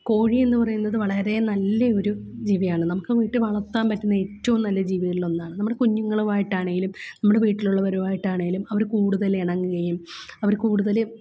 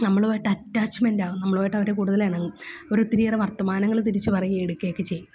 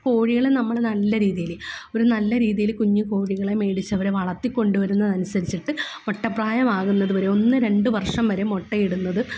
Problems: none marked